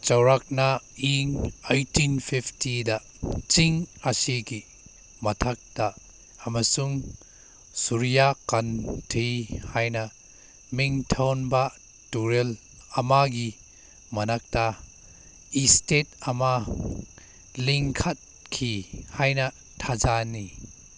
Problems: background sounds at intervals